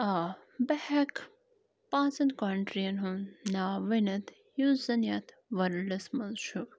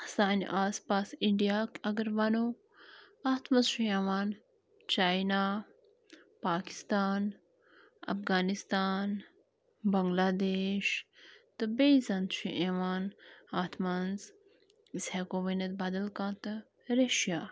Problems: constant background noise